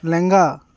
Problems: none marked